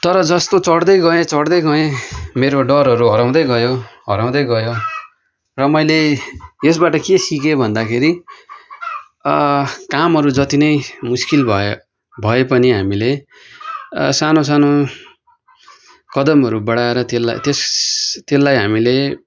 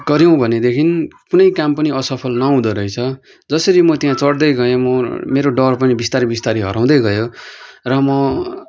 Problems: constant background noise